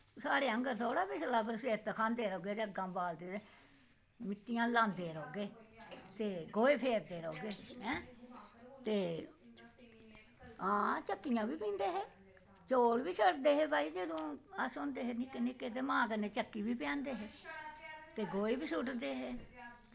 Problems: none marked